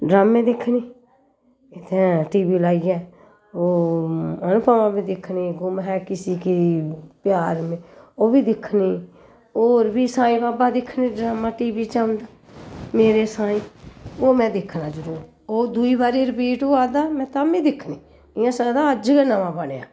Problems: none marked